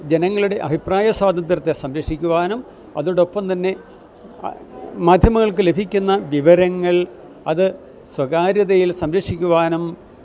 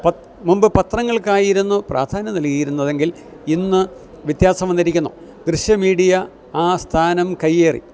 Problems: none marked